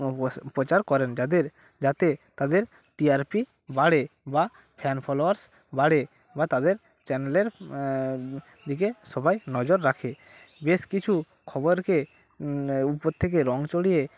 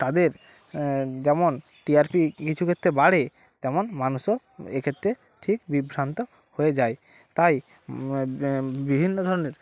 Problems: constant background noise, background conversations at intervals